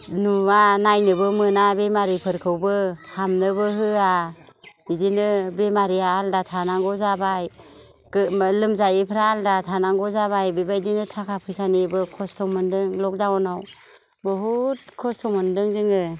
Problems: low volume